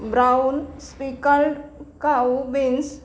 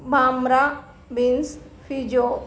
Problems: background sounds at intervals